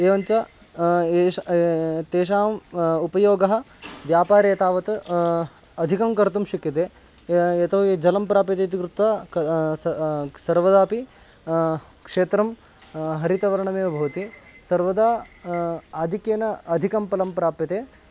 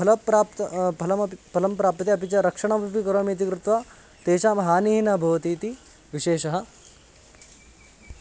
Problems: constant background noise